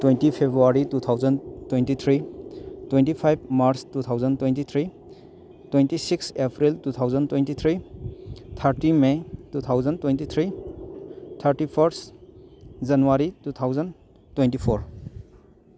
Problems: constant background noise